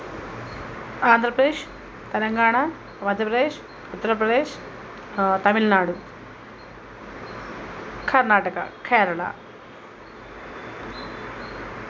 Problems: constant background noise